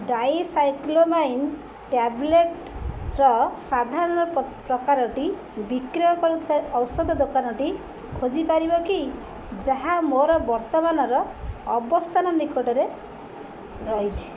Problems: constant background noise, continuous background conversations